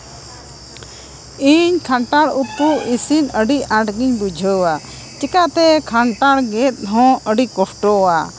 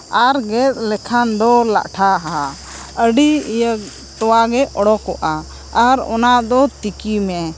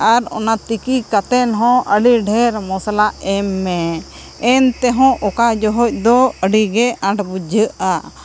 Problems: none marked